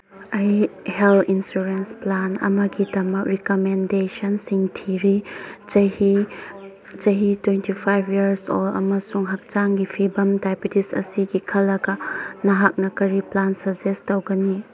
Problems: constant background noise